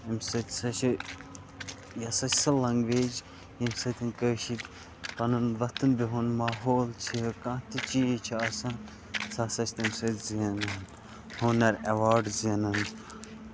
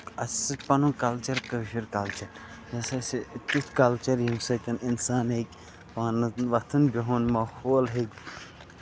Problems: constant background noise